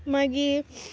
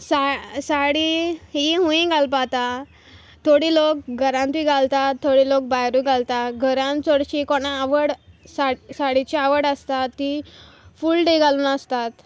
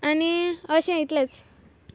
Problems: none marked